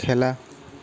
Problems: constant background noise